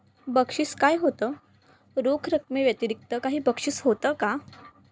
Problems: none marked